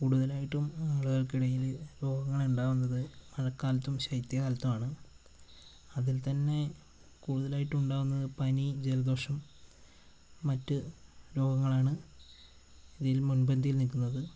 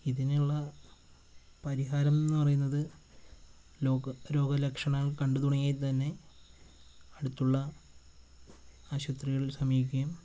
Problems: constant background noise